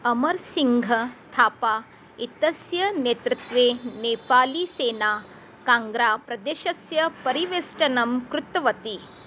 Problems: none marked